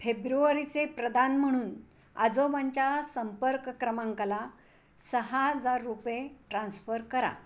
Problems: background sounds at intervals